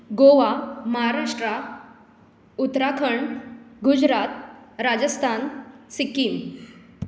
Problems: constant background noise